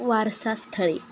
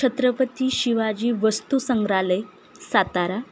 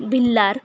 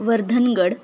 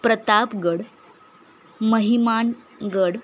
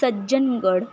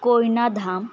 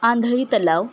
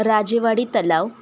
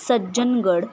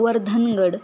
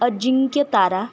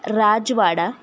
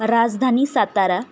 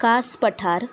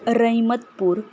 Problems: constant background noise